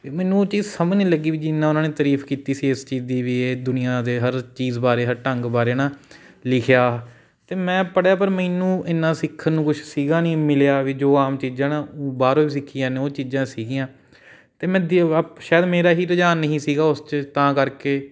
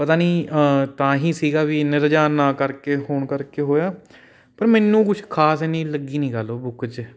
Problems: none marked